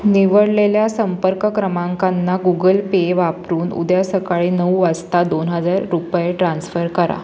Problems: none marked